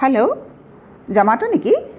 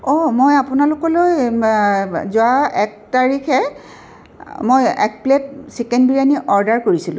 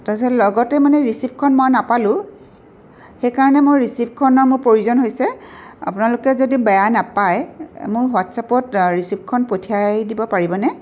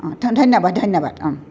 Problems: background sounds at intervals